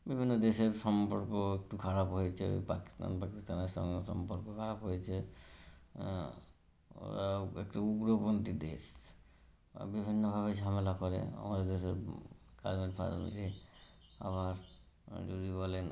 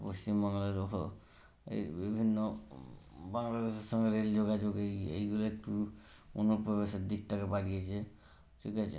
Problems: none marked